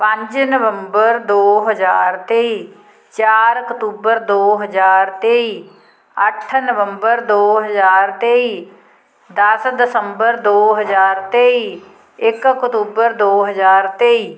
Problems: constant background noise